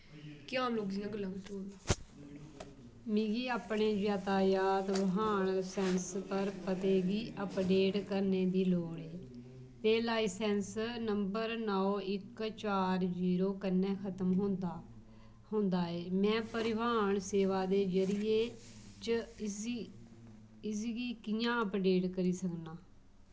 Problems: low volume